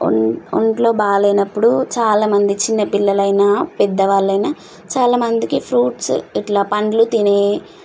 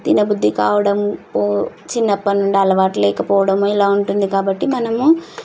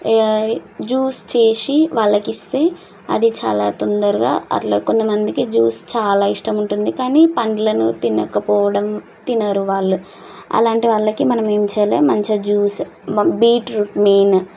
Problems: constant background noise